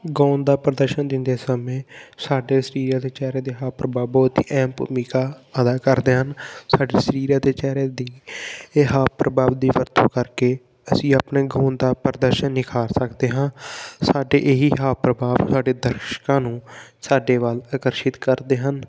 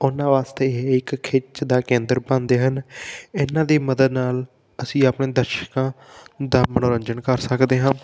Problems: none marked